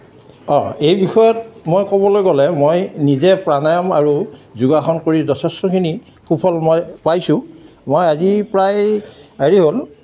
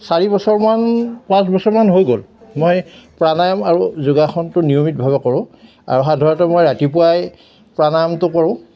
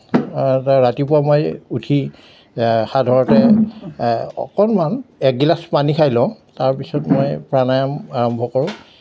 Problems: none marked